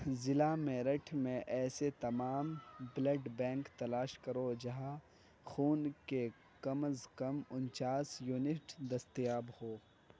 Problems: low volume